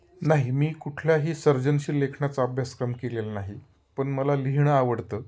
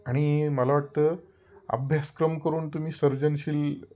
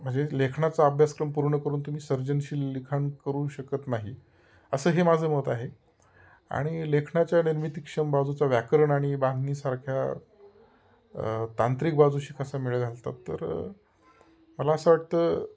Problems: constant background noise